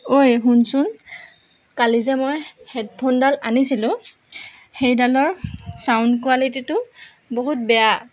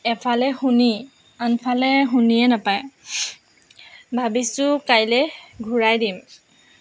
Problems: none marked